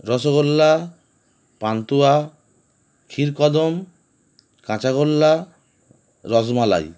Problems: constant background noise